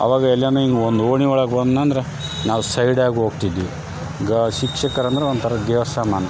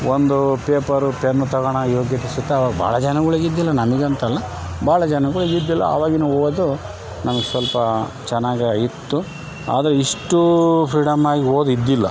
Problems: constant background noise